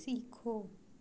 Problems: low volume